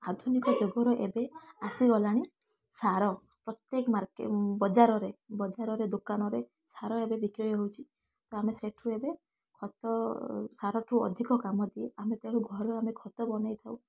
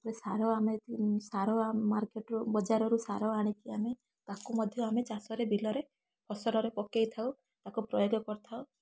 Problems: background sounds at intervals, background conversations at intervals